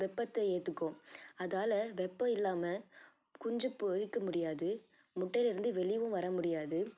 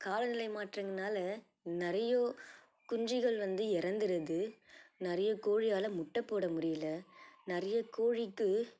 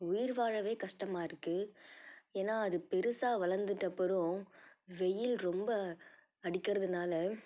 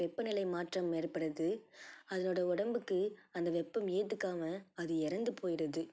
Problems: none marked